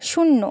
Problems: background sounds at intervals